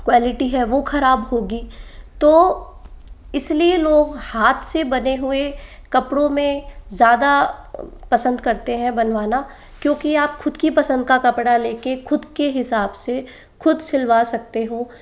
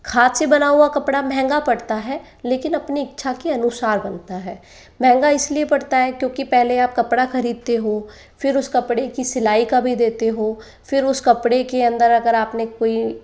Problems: background sounds at intervals